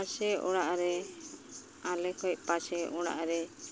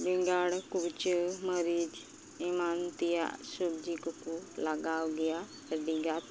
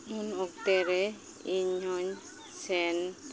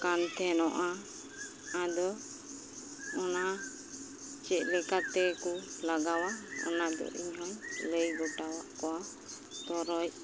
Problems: constant background noise